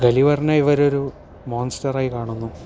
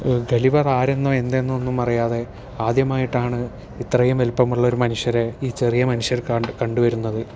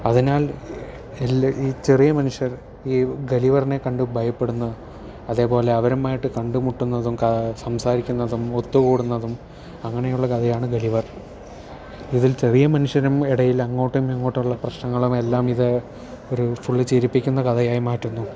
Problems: none marked